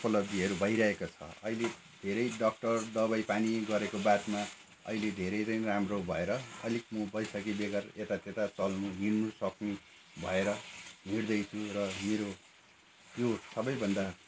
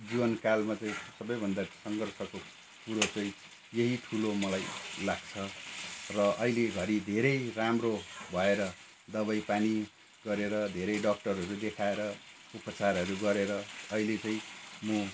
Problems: constant background noise, background conversations at intervals